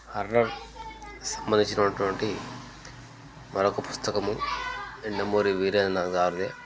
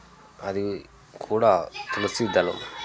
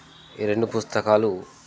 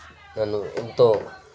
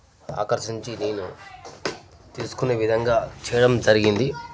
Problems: constant background noise, continuous background conversations